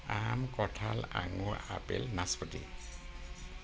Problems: constant background noise